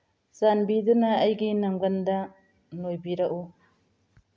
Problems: none marked